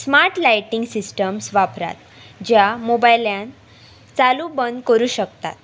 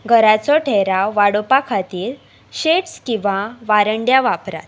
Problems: constant background noise